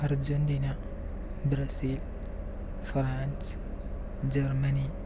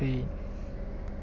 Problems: none marked